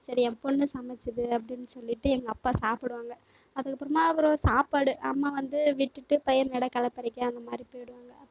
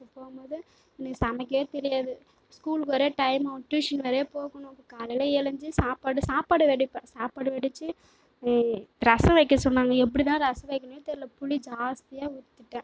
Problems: background sounds at intervals